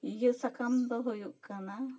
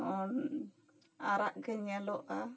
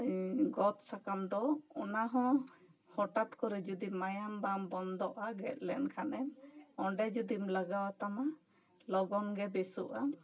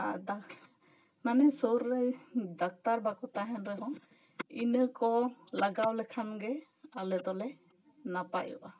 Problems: none marked